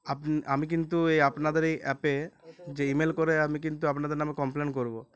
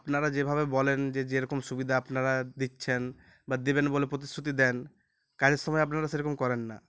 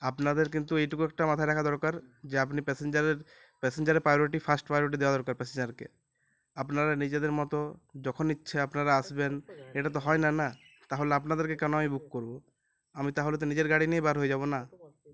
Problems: constant background noise